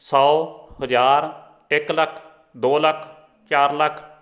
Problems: none marked